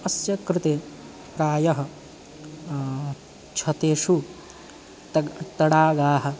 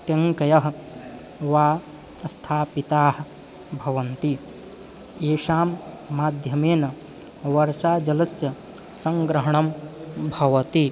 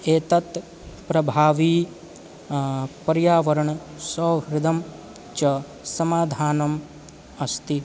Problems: constant background noise